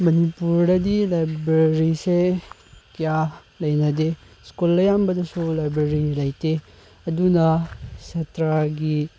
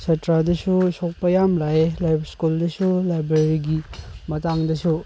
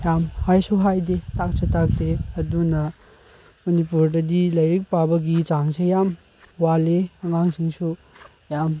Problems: none marked